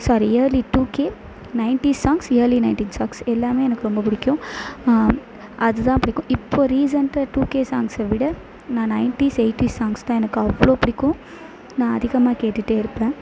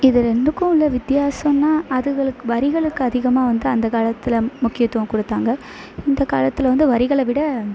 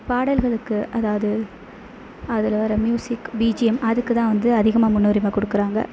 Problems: constant background noise